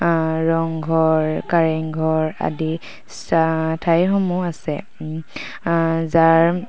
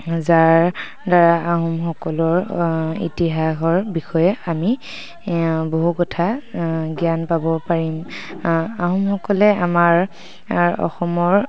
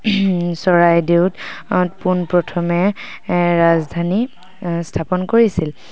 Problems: background sounds at intervals